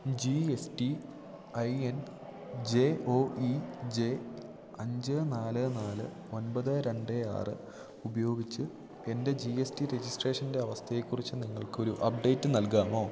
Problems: constant background noise